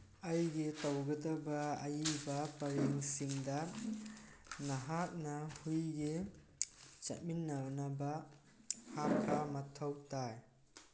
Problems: background sounds at intervals